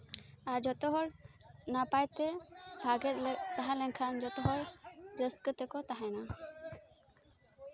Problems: constant background noise, continuous background conversations